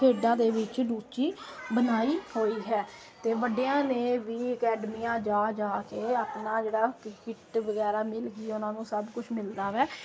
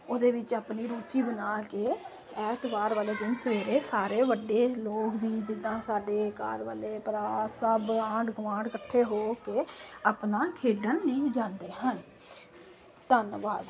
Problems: constant background noise